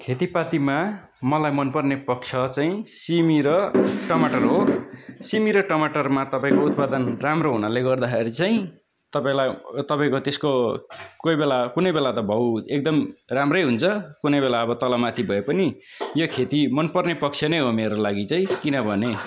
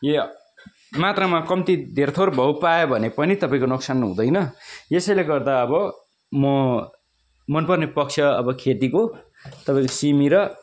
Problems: constant background noise, continuous background conversations